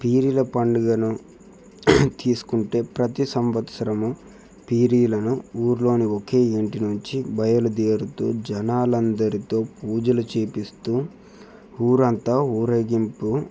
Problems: background sounds at intervals